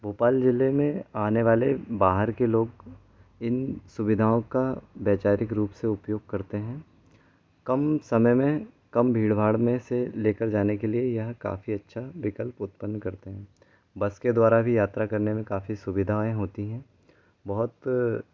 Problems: constant background noise